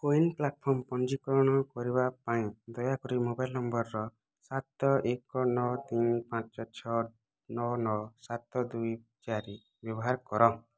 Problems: none marked